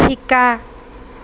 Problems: constant background noise